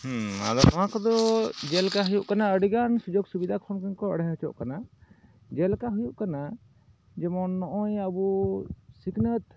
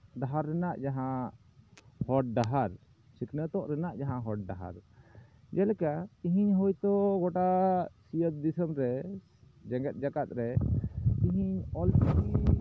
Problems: constant background noise